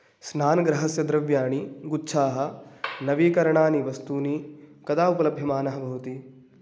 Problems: background sounds at intervals